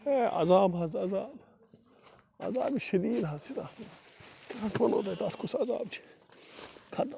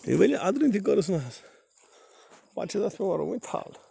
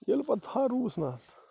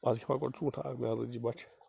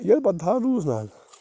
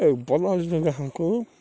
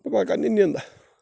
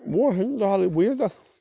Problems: constant background noise